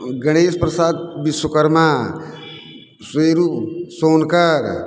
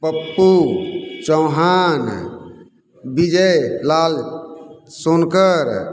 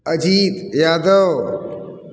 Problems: none marked